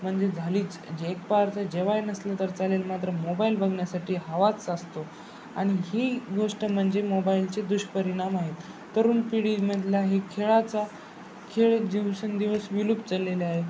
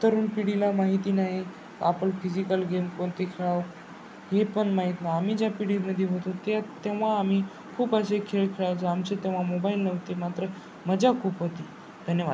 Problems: constant background noise